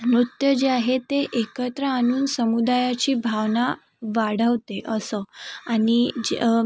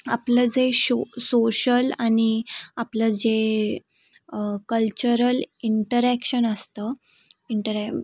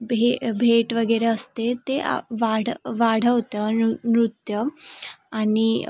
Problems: constant background noise, background conversations at intervals